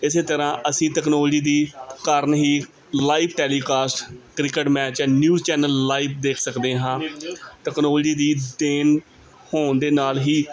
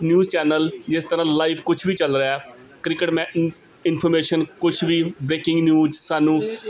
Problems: background conversations at intervals